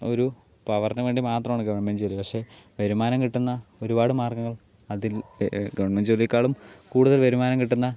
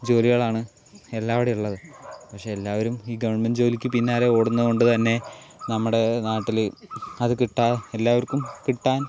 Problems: constant background noise